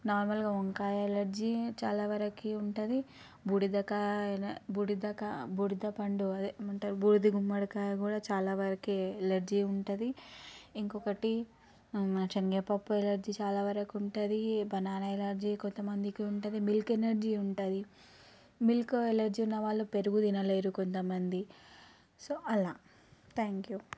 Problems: none marked